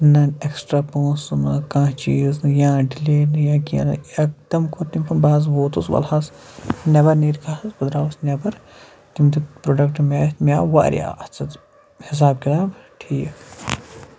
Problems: background sounds at intervals